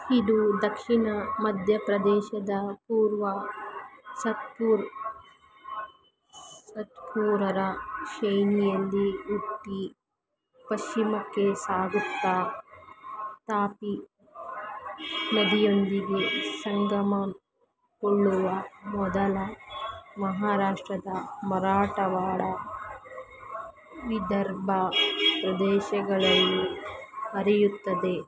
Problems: constant background noise